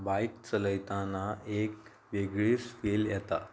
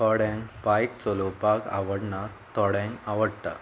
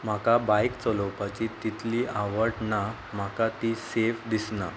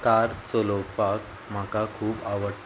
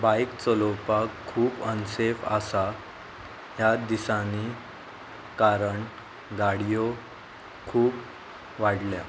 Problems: constant background noise, background conversations at intervals